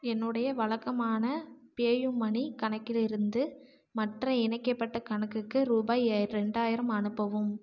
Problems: low volume